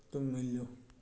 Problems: low volume